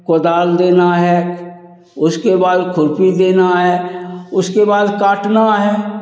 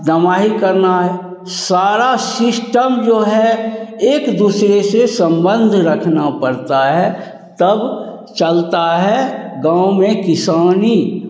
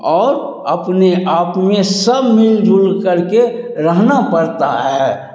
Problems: none marked